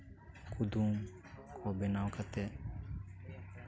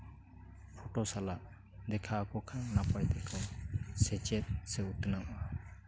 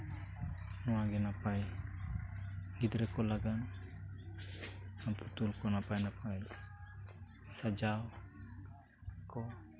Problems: background sounds at intervals, continuous background conversations